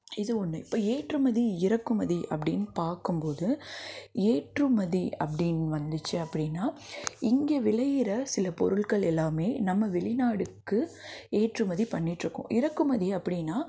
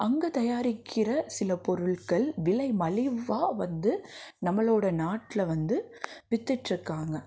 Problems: background sounds at intervals, background conversations at intervals